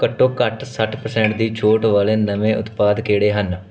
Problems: background sounds at intervals